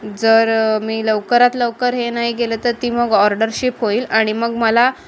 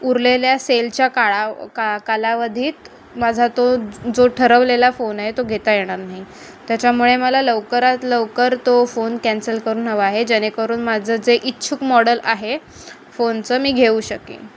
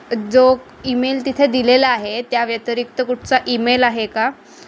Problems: none marked